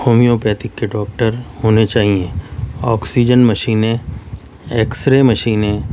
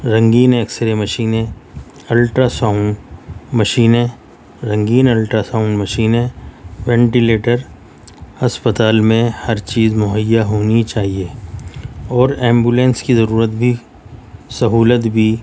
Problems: none marked